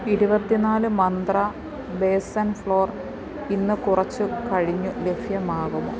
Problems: none marked